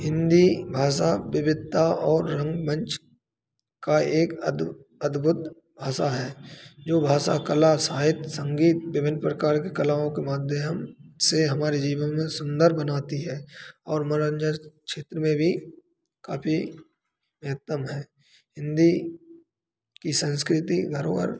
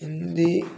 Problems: background sounds at intervals